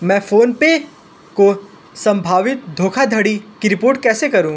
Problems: none marked